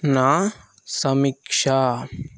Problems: constant background noise